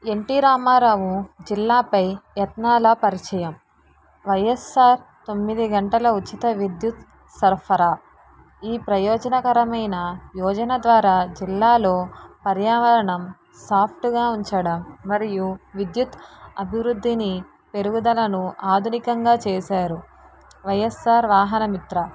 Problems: none marked